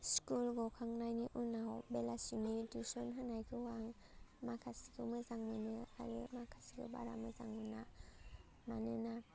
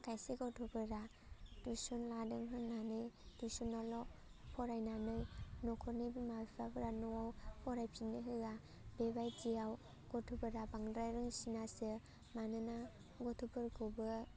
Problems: constant background noise